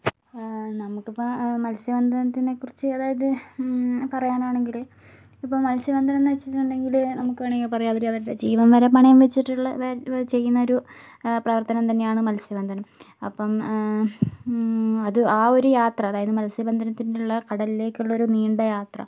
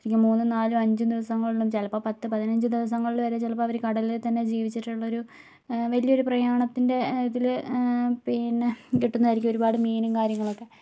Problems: none marked